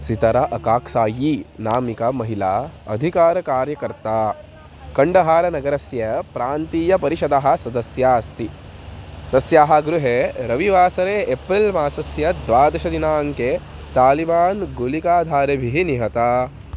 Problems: constant background noise